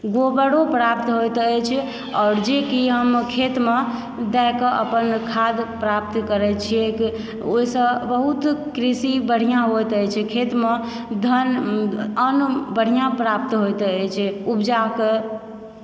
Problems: background sounds at intervals